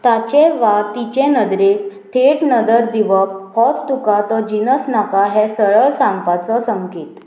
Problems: constant background noise